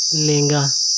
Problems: constant background noise